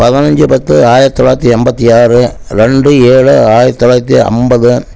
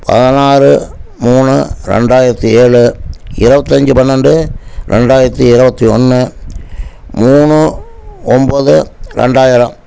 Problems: none marked